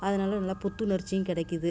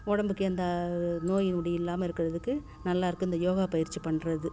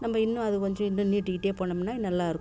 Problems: low volume